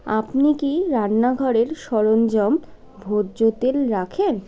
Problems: none marked